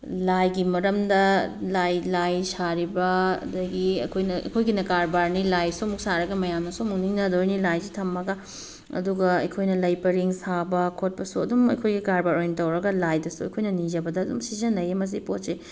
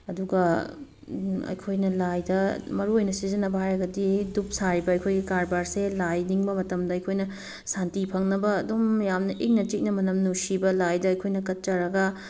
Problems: background sounds at intervals